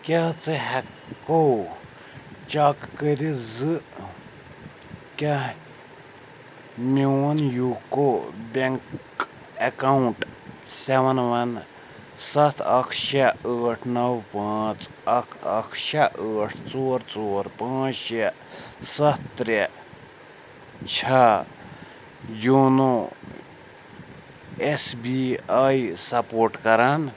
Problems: background sounds at intervals